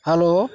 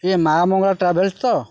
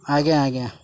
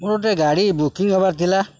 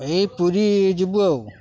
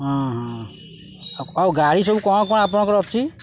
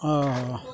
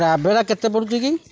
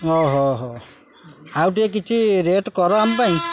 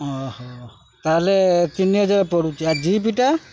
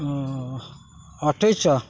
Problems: constant background noise, background conversations at intervals